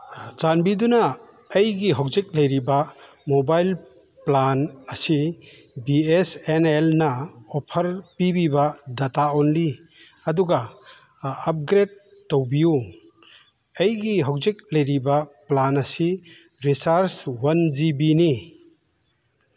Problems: background sounds at intervals